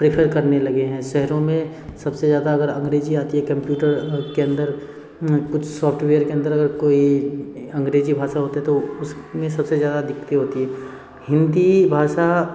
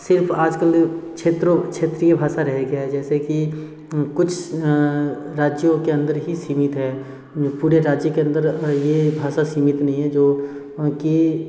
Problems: constant background noise, background conversations at intervals